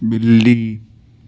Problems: constant background noise, low volume